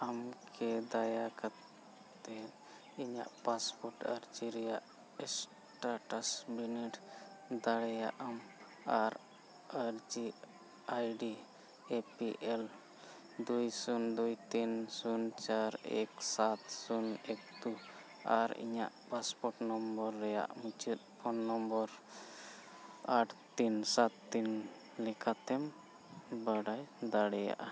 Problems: constant background noise, low volume